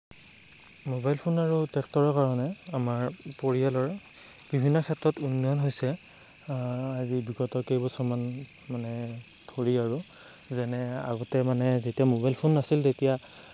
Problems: constant background noise